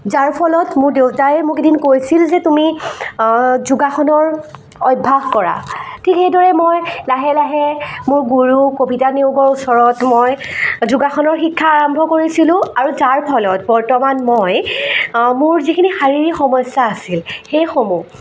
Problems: constant background noise, continuous background conversations